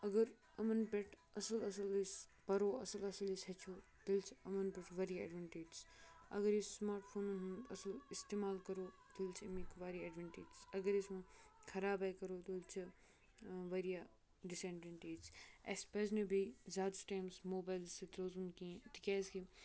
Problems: none marked